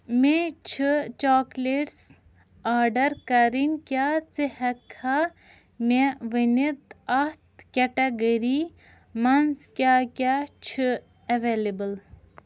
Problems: none marked